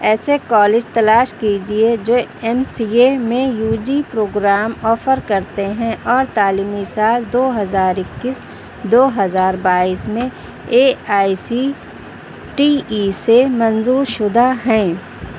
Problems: none marked